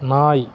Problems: constant background noise